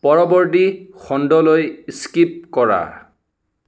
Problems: none marked